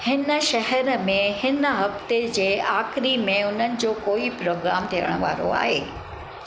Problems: constant background noise